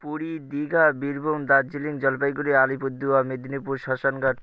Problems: none marked